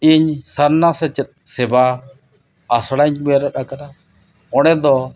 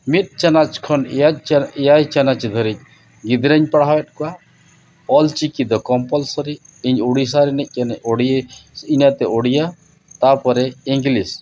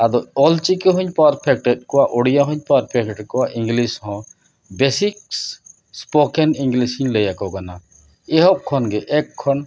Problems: none marked